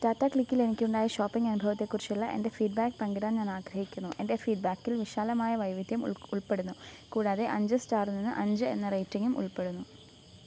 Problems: constant background noise, low volume